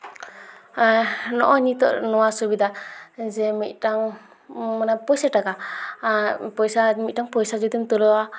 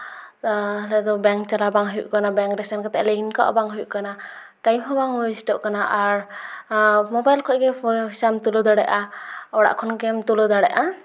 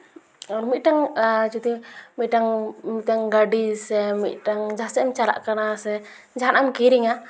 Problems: background sounds at intervals, continuous background conversations